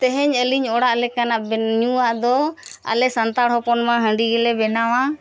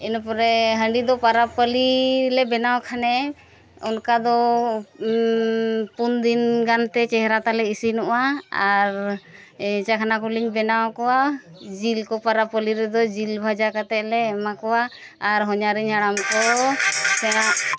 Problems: constant background noise, continuous background conversations